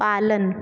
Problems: none marked